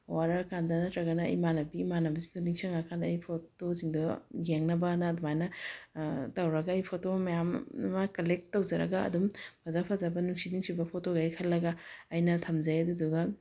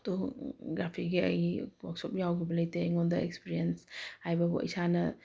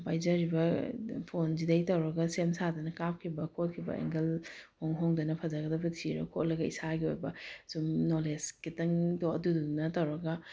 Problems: none marked